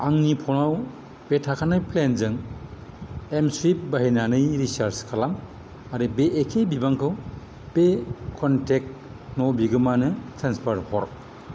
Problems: constant background noise